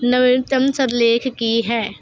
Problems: constant background noise